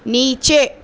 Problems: none marked